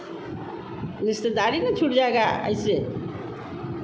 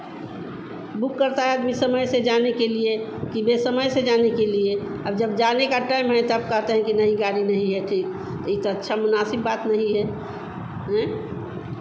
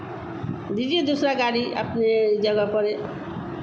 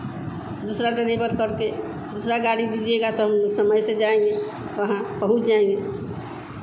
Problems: constant background noise